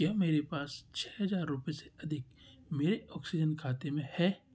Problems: constant background noise